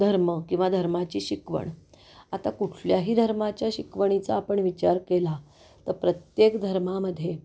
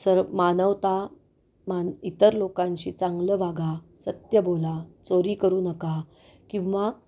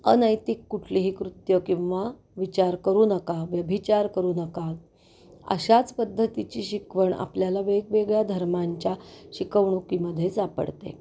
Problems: none marked